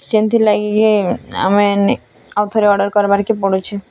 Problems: constant background noise, continuous background conversations